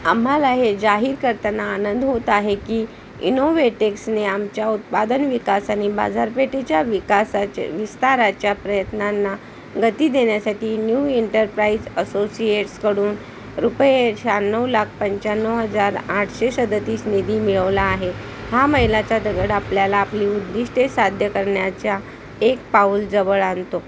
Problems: constant background noise